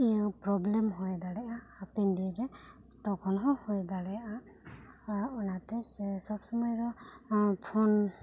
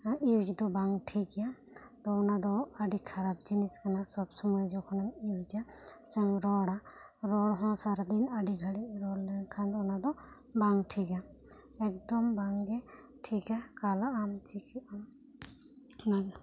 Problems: low volume